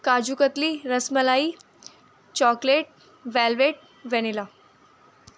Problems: constant background noise